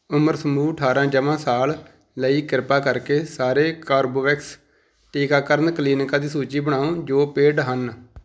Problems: background sounds at intervals